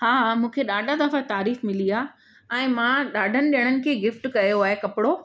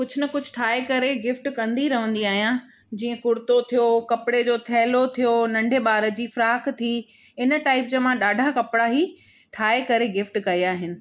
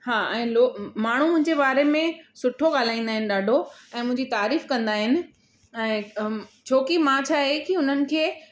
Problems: background sounds at intervals